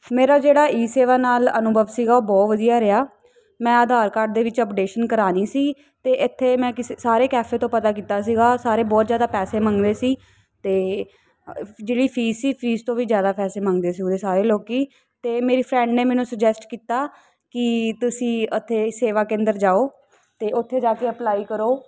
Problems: none marked